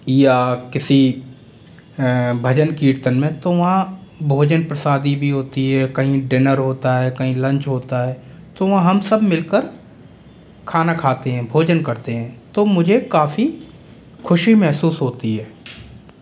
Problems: constant background noise